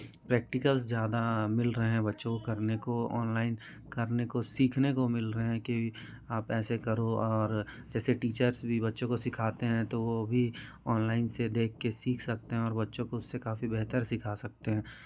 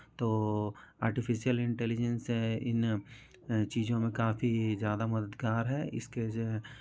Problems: continuous background conversations